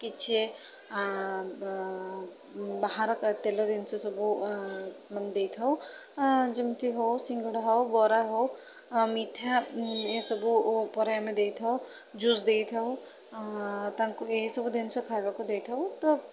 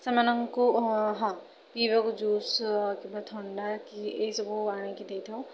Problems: none marked